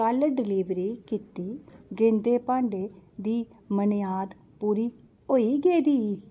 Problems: background sounds at intervals